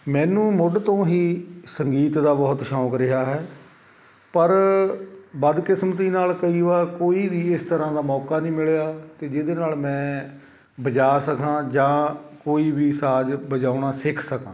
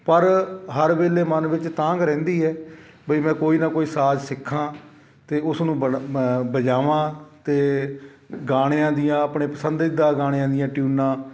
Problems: none marked